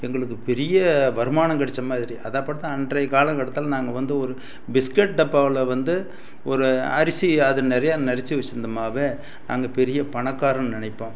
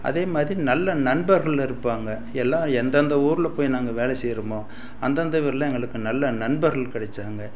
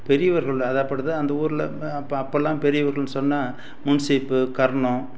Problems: none marked